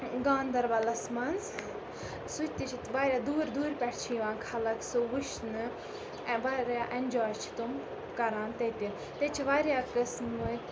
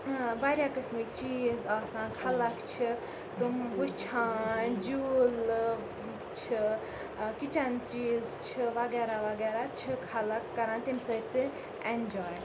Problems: constant background noise, background conversations at intervals